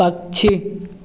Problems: background sounds at intervals